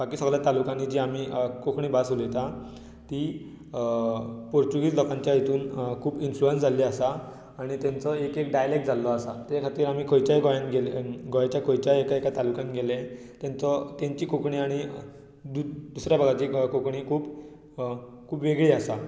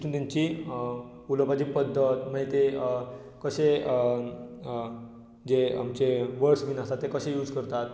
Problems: background sounds at intervals